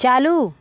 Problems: constant background noise